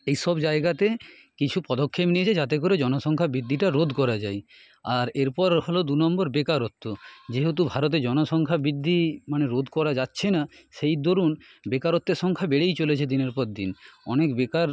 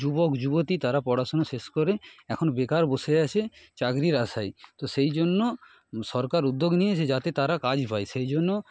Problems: background sounds at intervals